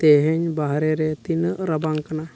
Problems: none marked